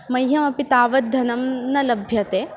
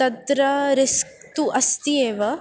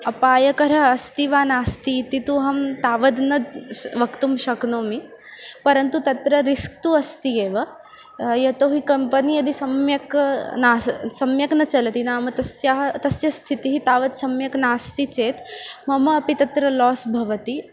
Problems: constant background noise, continuous background conversations